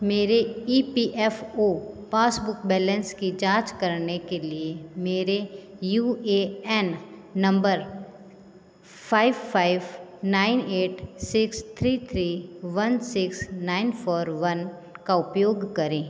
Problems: constant background noise